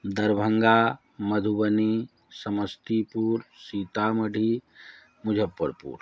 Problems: background sounds at intervals